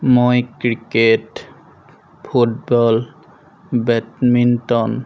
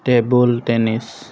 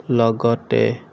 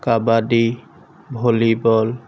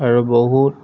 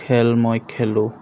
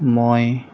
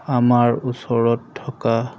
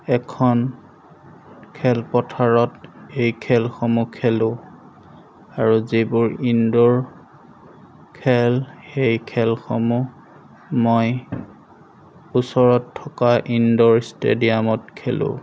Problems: none marked